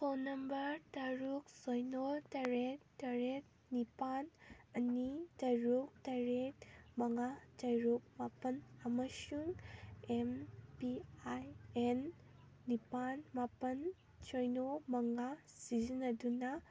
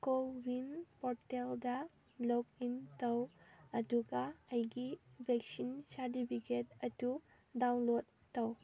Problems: background sounds at intervals